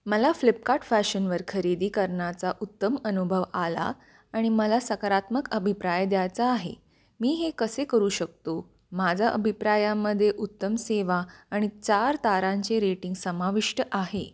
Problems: constant background noise